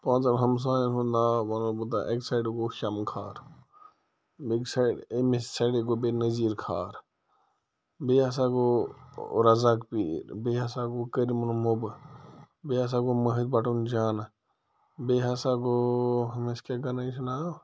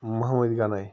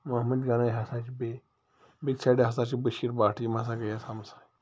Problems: low volume